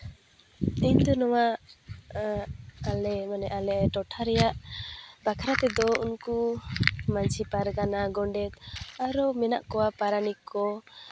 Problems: none marked